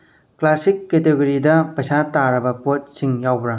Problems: low volume